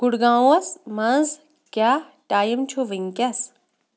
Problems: background sounds at intervals